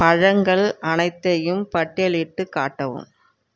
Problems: background sounds at intervals